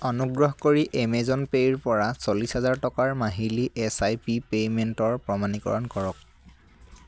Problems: none marked